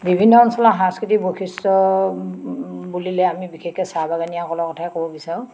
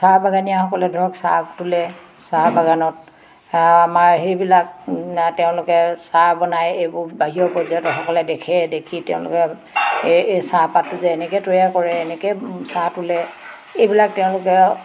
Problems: constant background noise, background conversations at intervals